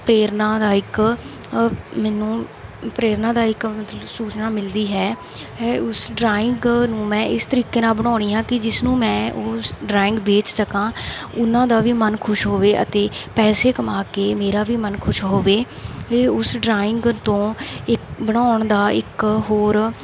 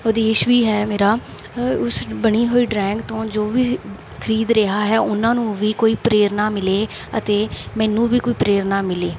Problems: constant background noise